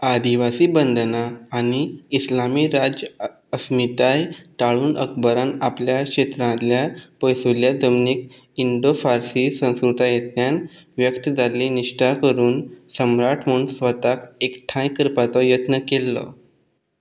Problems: background sounds at intervals